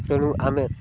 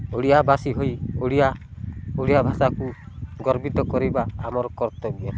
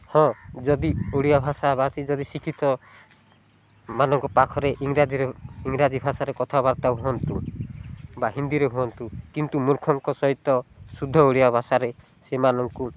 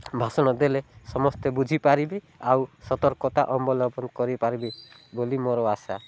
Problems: low volume